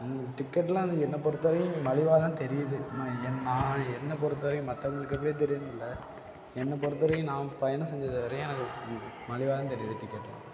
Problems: constant background noise, low volume